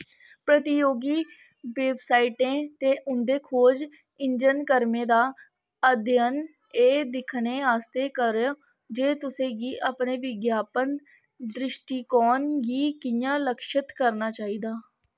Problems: constant background noise